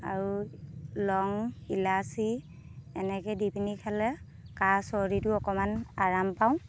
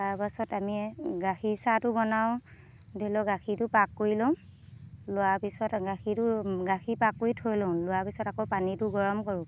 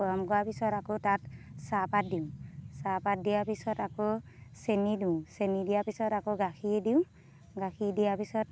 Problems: constant background noise